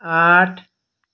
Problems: none marked